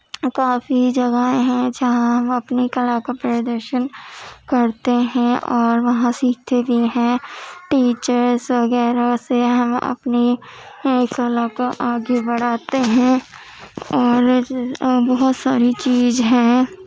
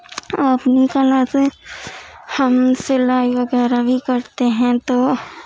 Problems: constant background noise, background conversations at intervals, low volume